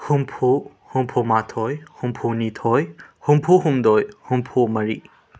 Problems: background sounds at intervals